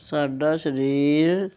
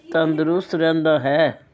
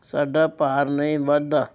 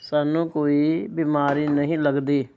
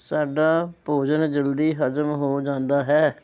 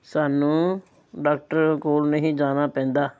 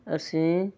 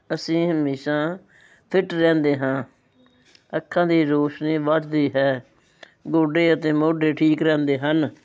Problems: background sounds at intervals, background conversations at intervals